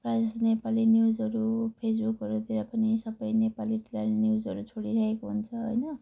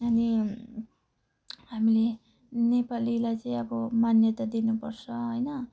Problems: none marked